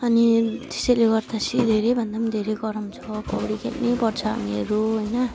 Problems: none marked